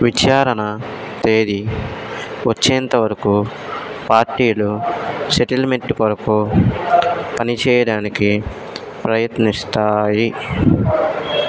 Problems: constant background noise